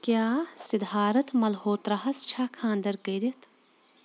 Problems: constant background noise